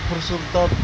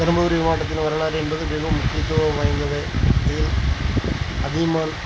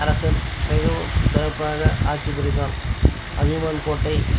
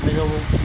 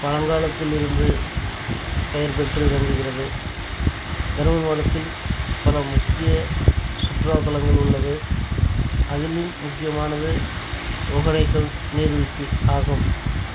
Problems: constant background noise